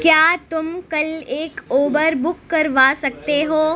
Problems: constant background noise